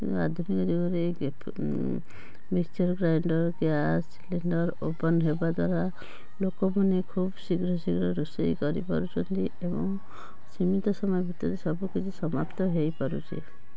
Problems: constant background noise